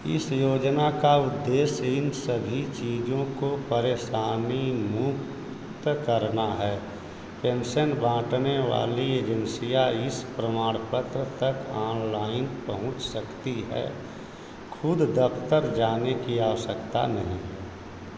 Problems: constant background noise